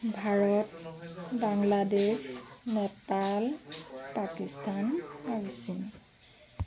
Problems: continuous background conversations